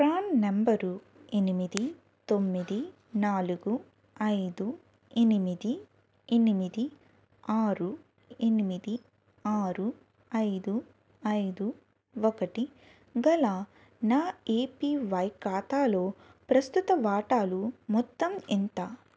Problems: background sounds at intervals